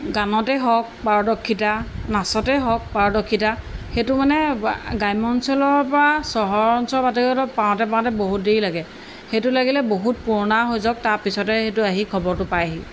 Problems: none marked